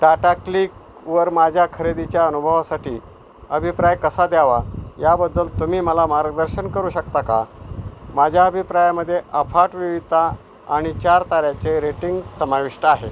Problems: constant background noise